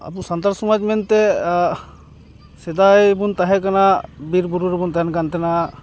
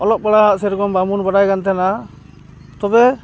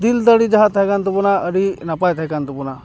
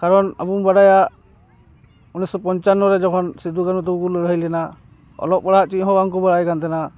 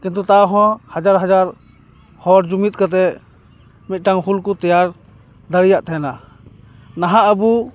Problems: background sounds at intervals, background conversations at intervals